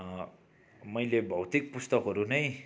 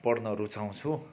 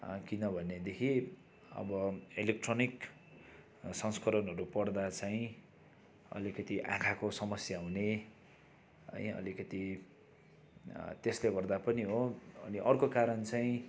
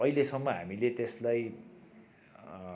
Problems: background sounds at intervals